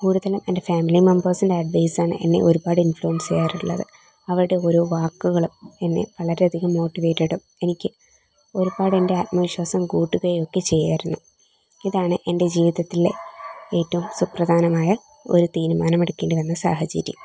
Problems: background sounds at intervals